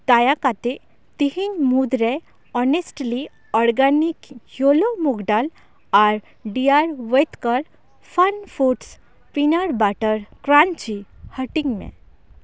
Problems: none marked